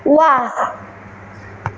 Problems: constant background noise